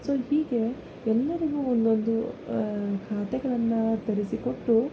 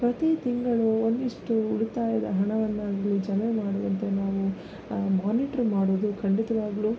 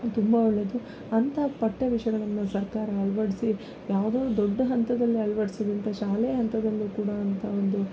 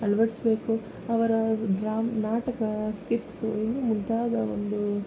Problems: none marked